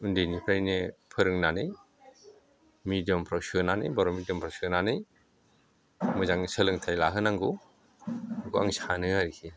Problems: none marked